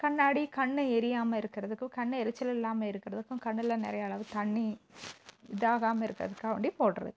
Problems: background sounds at intervals